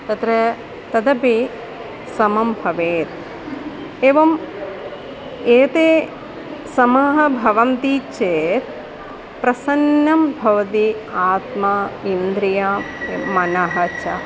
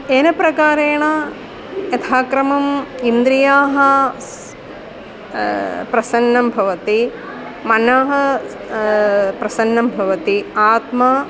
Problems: constant background noise